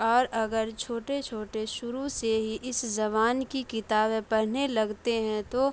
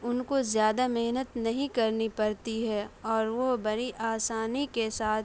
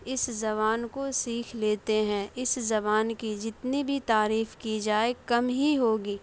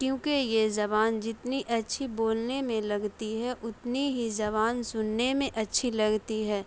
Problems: none marked